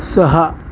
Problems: none marked